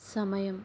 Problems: low volume